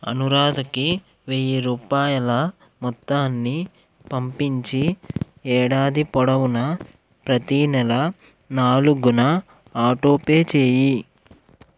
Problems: background sounds at intervals